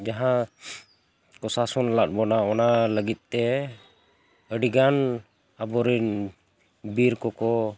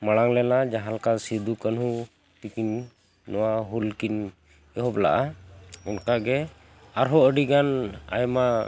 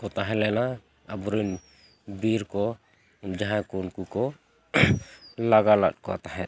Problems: background sounds at intervals